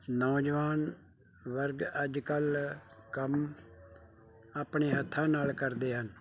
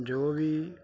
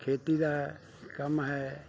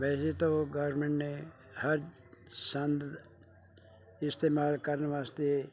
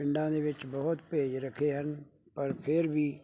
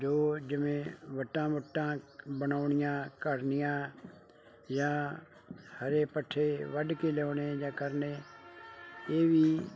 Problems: none marked